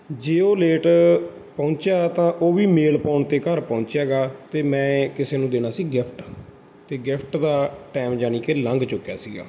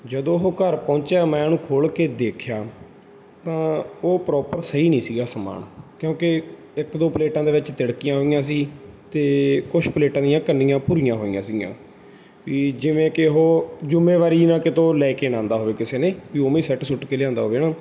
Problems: background sounds at intervals